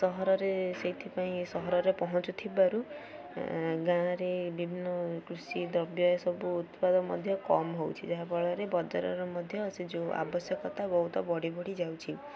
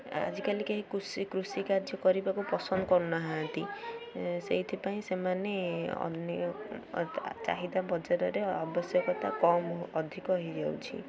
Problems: constant background noise, continuous background conversations